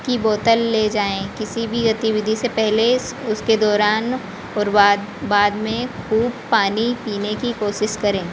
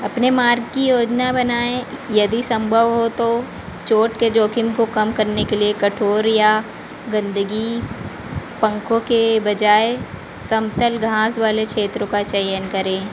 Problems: constant background noise